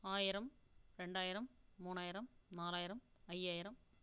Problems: low volume